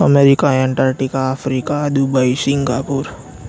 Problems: constant background noise